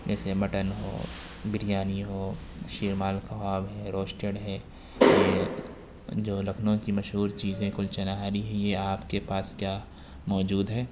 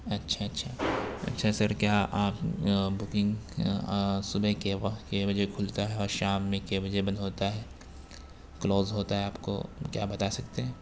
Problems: constant background noise